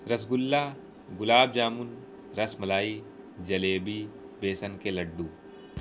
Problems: constant background noise